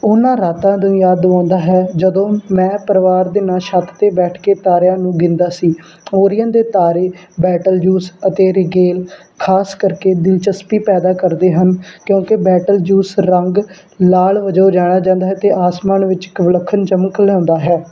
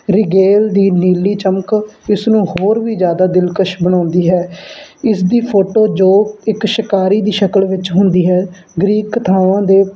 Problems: background sounds at intervals